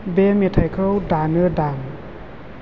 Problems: constant background noise